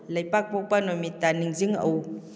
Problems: none marked